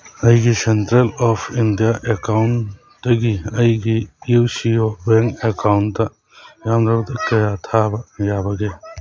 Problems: background conversations at intervals